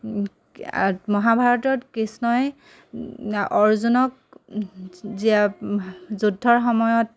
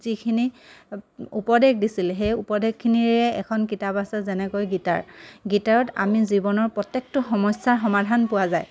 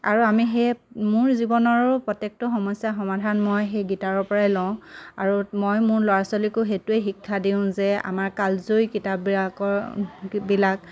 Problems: none marked